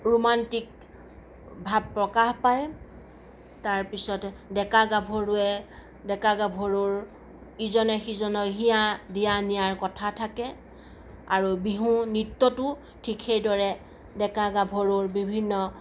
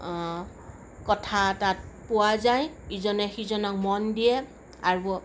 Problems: none marked